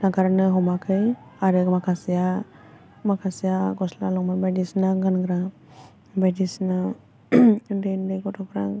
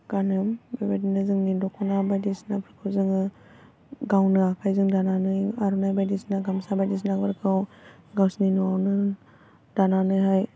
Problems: low volume